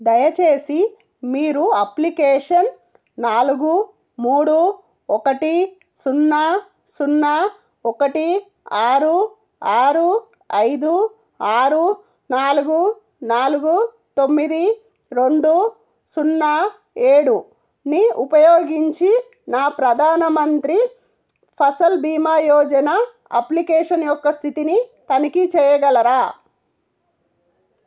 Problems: none marked